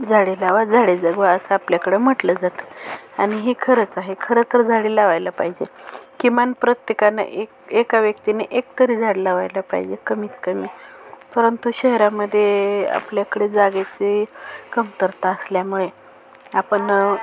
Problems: constant background noise, continuous background conversations